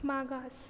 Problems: none marked